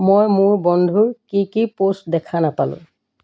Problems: constant background noise